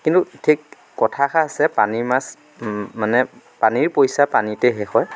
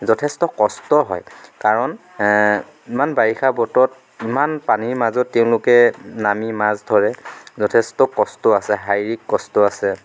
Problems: background sounds at intervals